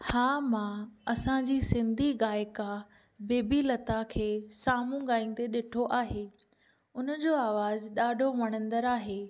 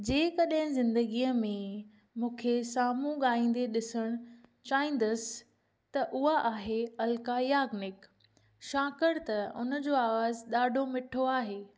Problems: none marked